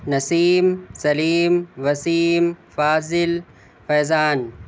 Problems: constant background noise